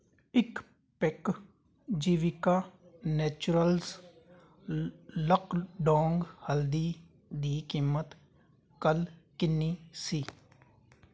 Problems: constant background noise